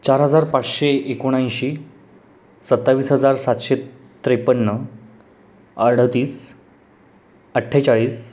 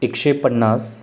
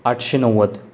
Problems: constant background noise